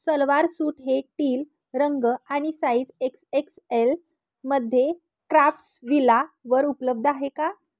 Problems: none marked